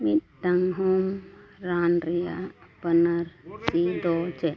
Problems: continuous background conversations